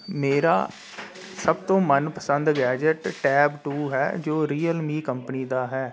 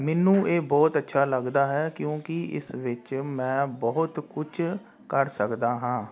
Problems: constant background noise